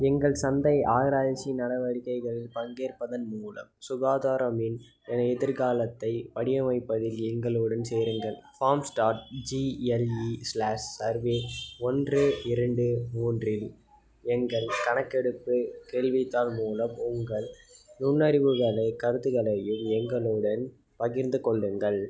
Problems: none marked